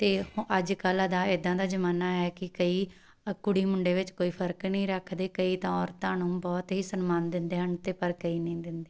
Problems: background sounds at intervals